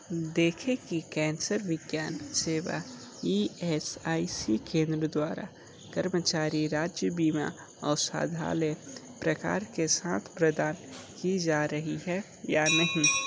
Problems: constant background noise, background conversations at intervals